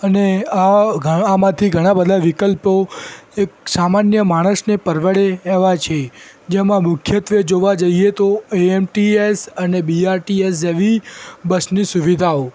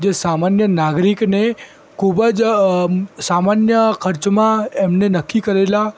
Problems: constant background noise